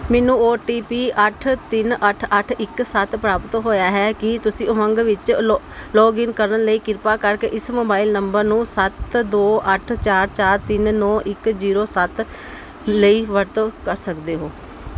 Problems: none marked